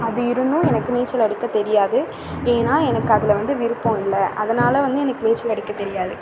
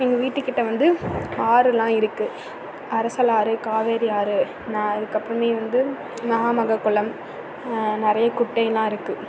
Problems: constant background noise